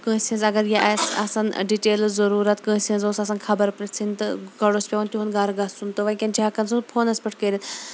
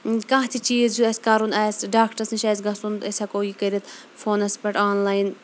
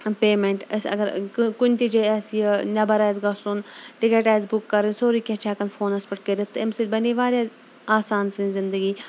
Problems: constant background noise